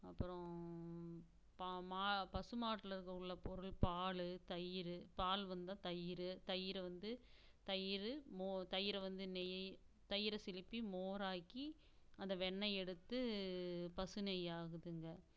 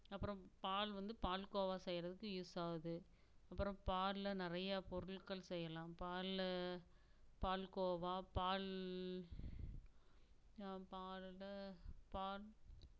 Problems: constant background noise, low volume